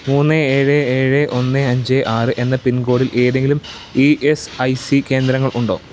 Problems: none marked